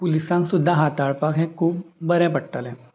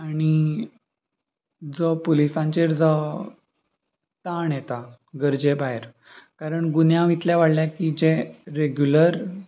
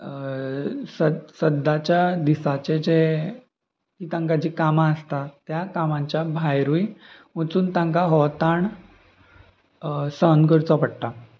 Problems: constant background noise, continuous background conversations